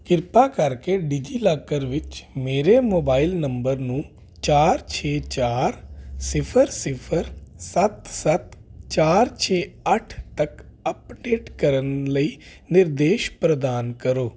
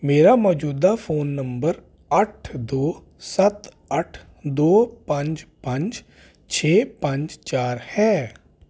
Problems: constant background noise